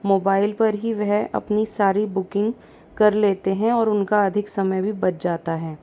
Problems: constant background noise